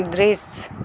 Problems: constant background noise